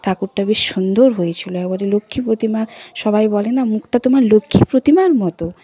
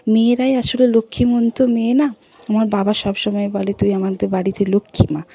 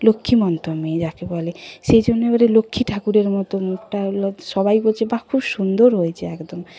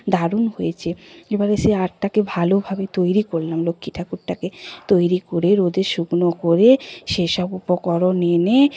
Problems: constant background noise, background conversations at intervals